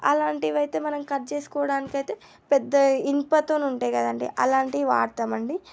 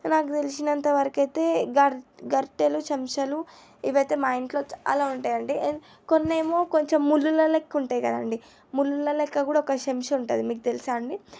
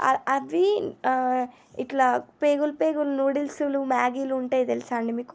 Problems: none marked